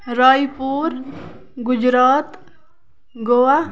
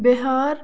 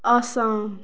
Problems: background sounds at intervals, background conversations at intervals